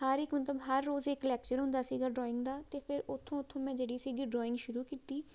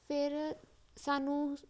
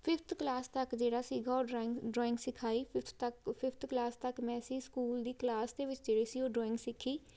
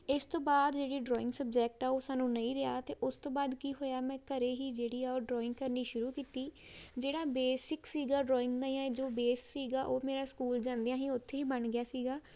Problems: background sounds at intervals